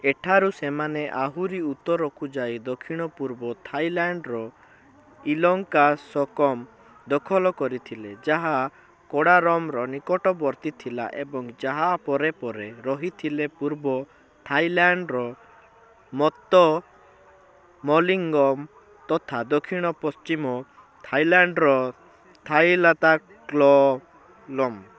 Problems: constant background noise